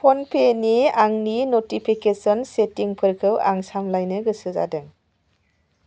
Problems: none marked